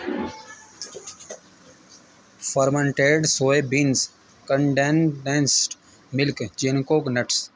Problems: constant background noise